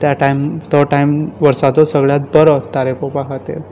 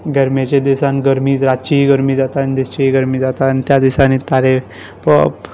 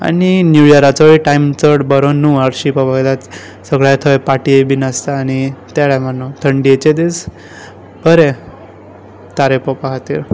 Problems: background sounds at intervals